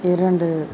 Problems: background sounds at intervals